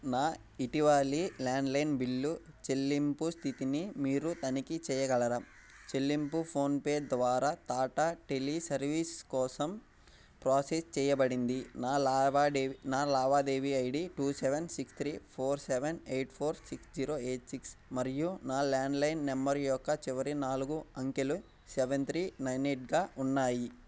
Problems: none marked